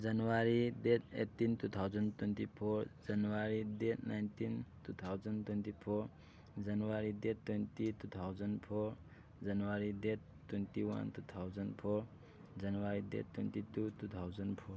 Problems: none marked